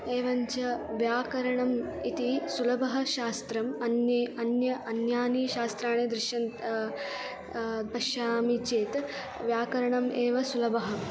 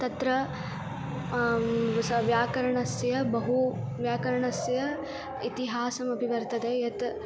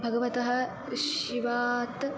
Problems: constant background noise